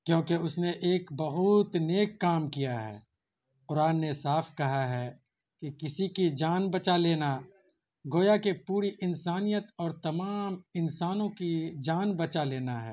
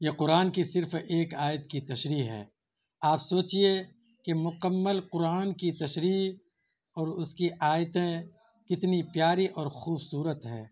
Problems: constant background noise